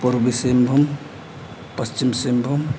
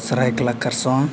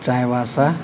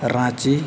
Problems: background sounds at intervals